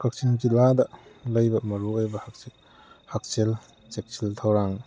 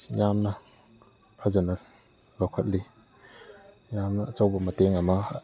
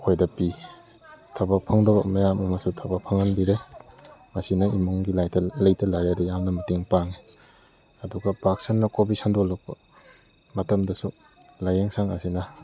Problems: background conversations at intervals